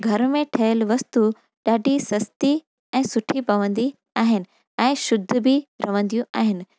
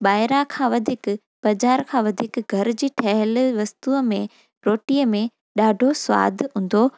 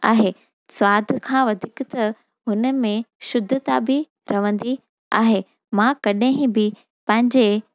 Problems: none marked